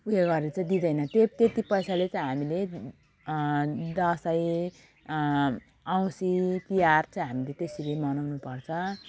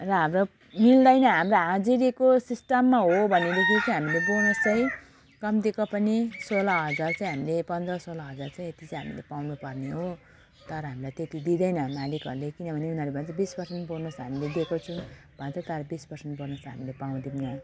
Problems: constant background noise